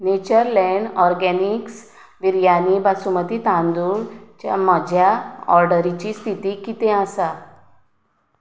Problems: background sounds at intervals